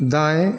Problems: constant background noise, echo